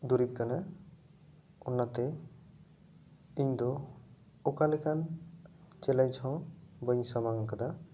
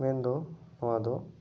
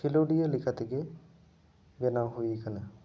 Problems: none marked